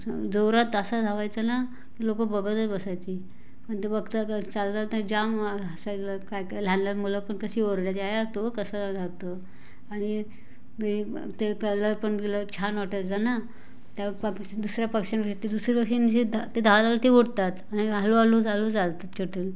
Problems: constant background noise